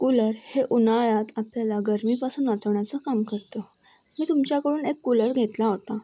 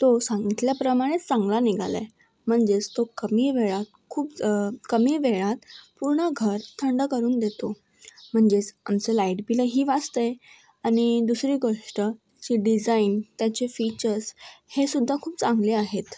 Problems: none marked